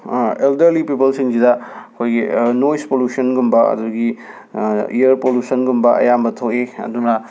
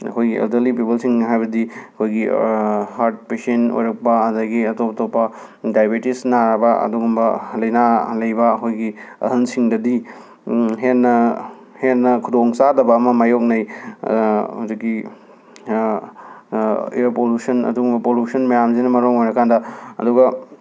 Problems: background sounds at intervals